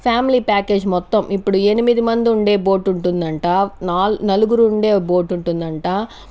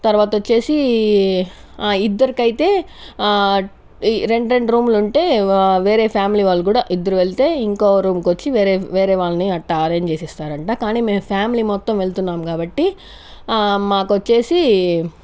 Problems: none marked